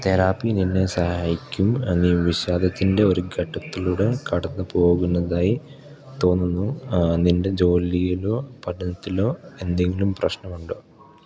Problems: background sounds at intervals